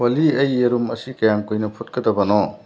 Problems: none marked